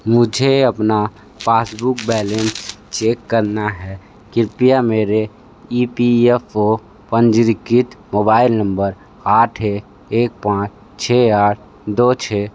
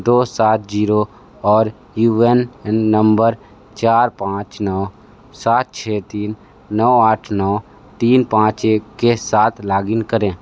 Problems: none marked